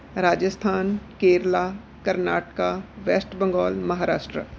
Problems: background sounds at intervals